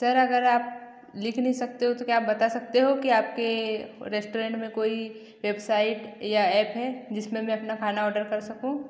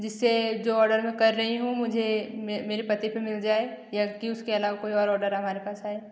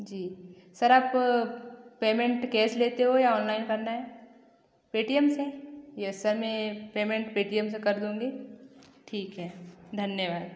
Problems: echo